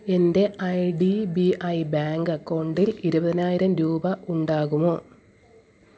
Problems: none marked